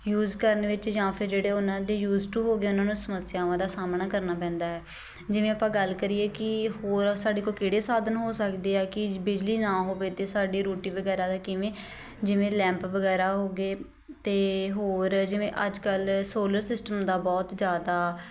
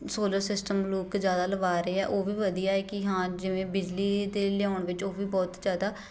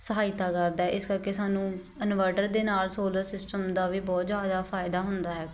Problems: none marked